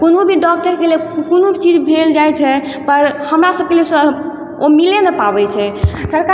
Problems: constant background noise